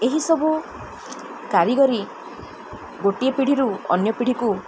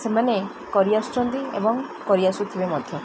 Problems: constant background noise